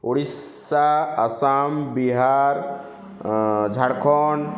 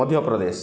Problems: background sounds at intervals